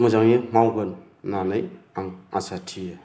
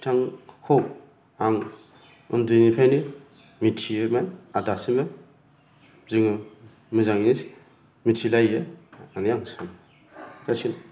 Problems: low volume